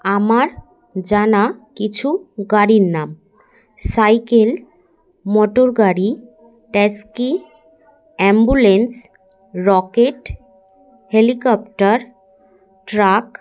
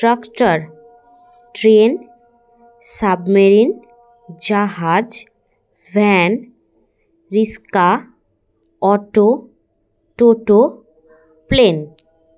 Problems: constant background noise